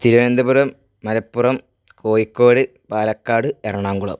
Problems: constant background noise